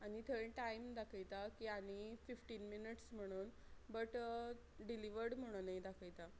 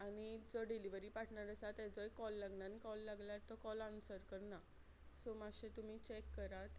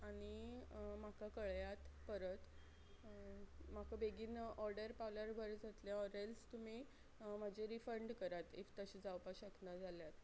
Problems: low volume